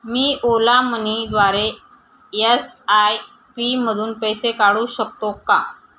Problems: none marked